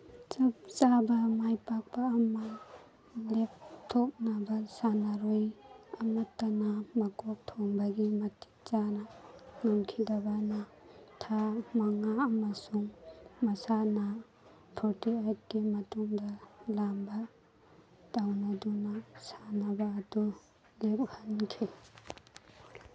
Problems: background sounds at intervals